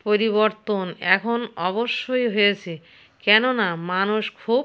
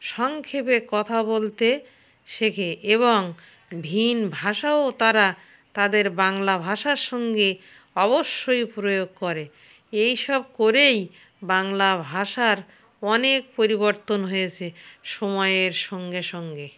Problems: none marked